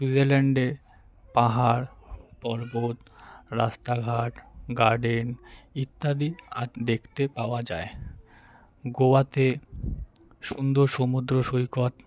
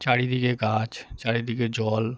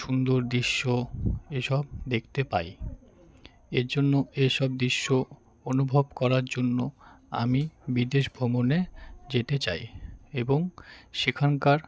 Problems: constant background noise, continuous background conversations